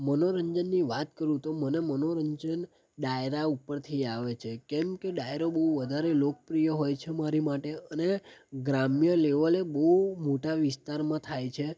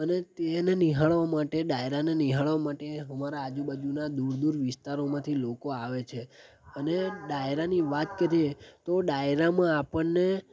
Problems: background sounds at intervals